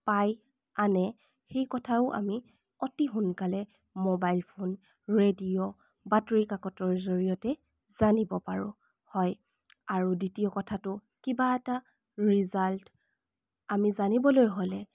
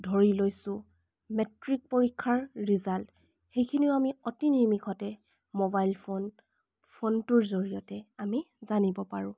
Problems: none marked